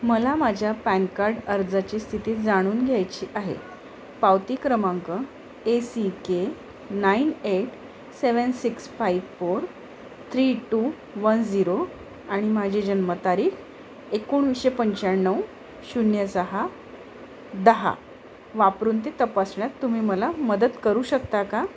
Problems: constant background noise, background conversations at intervals